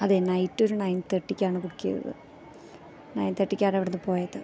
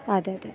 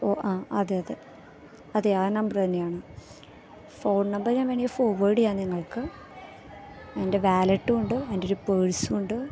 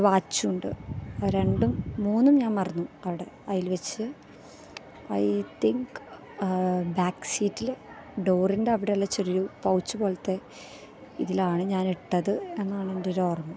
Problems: background sounds at intervals